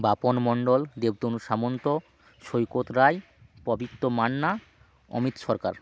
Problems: background sounds at intervals